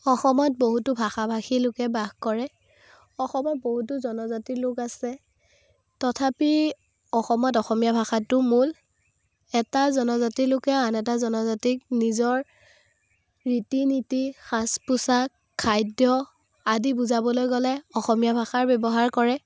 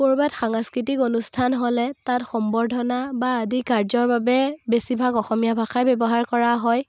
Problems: none marked